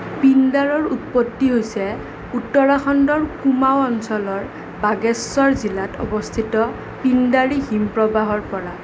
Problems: none marked